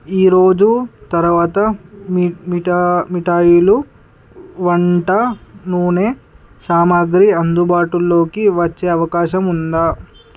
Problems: constant background noise